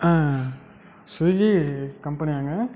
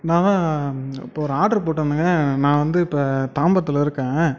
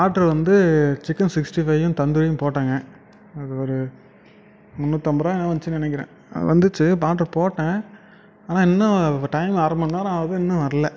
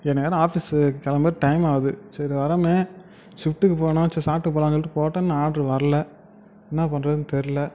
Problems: none marked